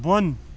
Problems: constant background noise